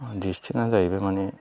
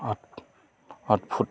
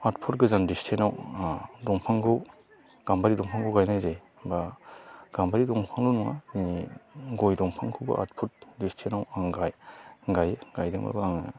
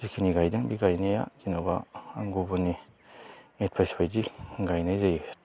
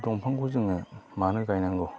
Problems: constant background noise